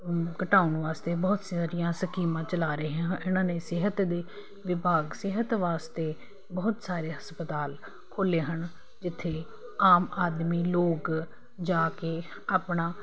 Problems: none marked